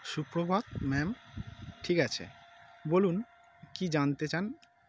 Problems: none marked